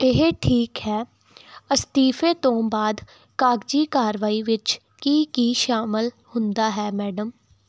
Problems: none marked